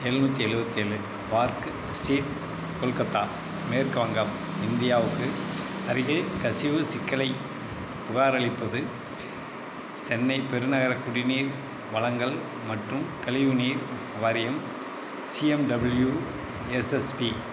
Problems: constant background noise